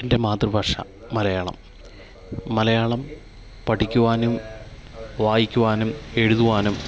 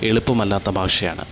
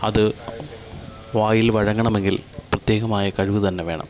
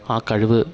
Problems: continuous background conversations